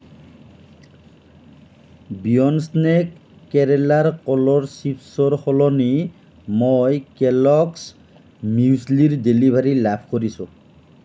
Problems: none marked